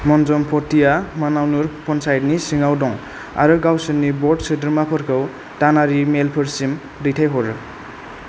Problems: none marked